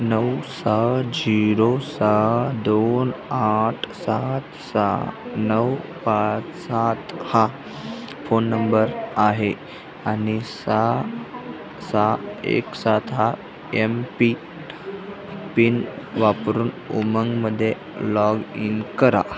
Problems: constant background noise, background conversations at intervals